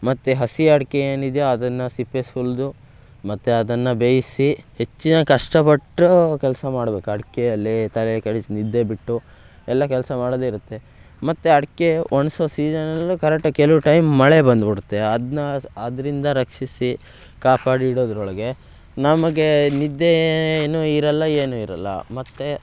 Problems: background sounds at intervals